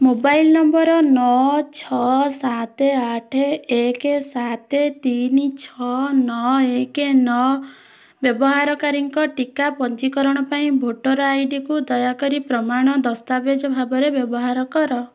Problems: none marked